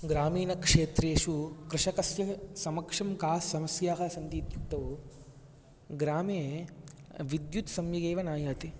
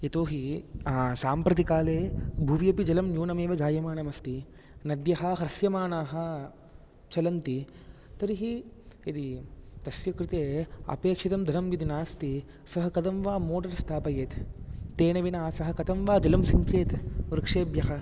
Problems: background sounds at intervals